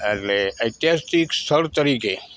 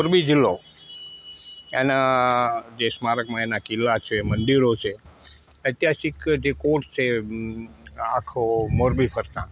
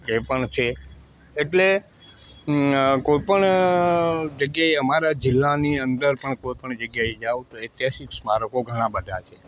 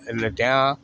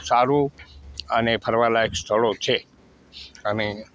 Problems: constant background noise